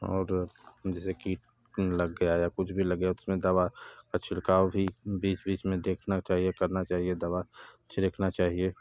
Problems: constant background noise